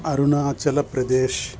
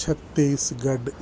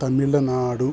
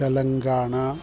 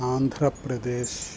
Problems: constant background noise